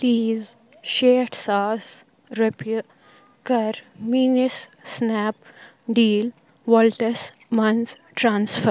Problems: background sounds at intervals